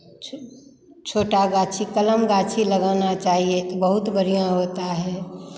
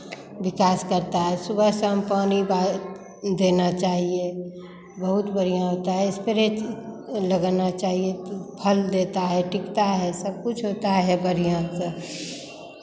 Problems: none marked